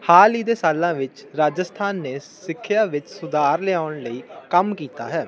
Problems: constant background noise